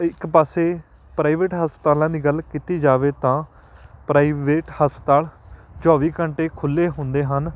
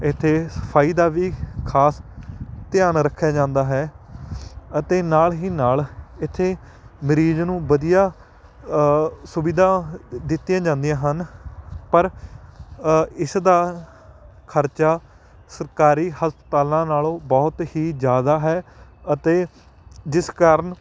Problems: constant background noise